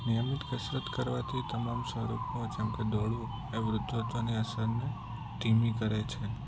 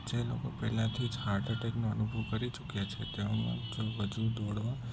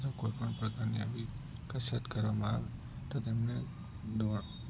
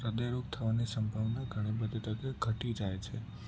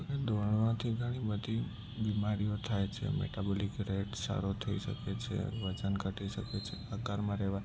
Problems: constant background noise, low volume